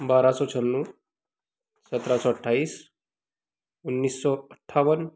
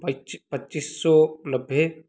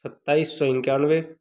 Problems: background sounds at intervals